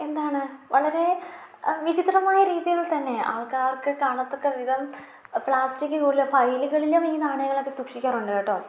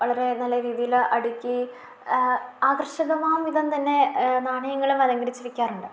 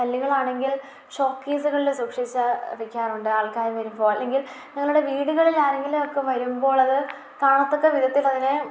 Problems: low volume